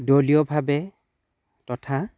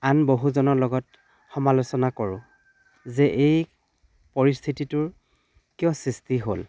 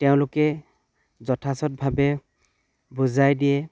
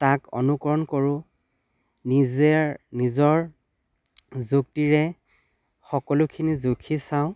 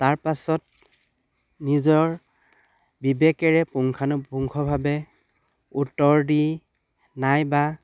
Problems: constant background noise, background conversations at intervals